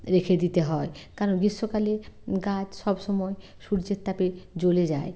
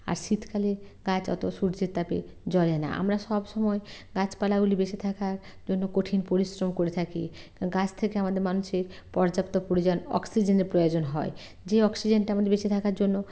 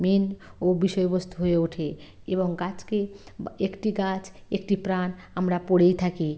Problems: constant background noise